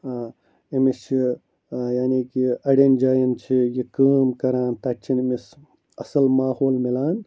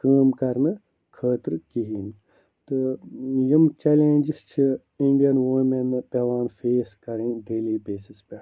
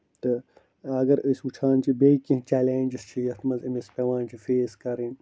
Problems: low volume